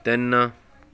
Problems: background conversations at intervals